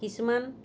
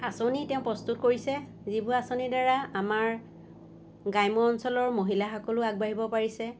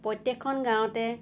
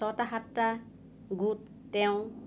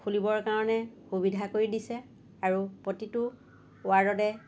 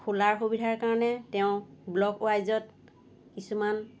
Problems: none marked